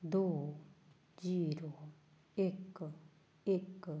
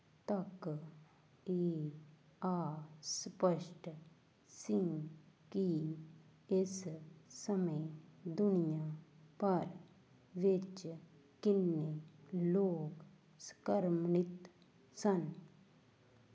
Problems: constant background noise